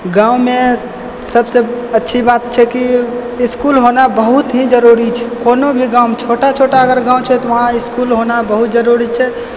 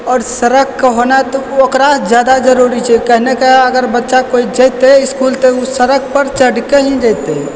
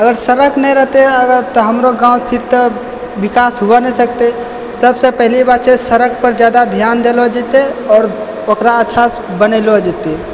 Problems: constant background noise